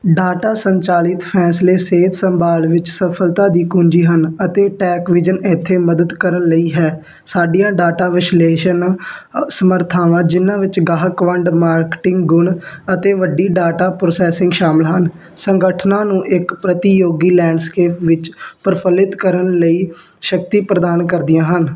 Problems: constant background noise